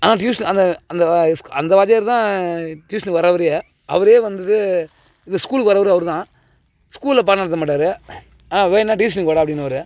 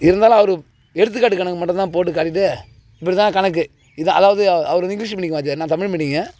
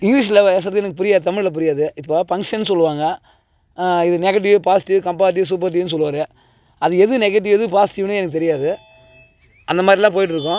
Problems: background sounds at intervals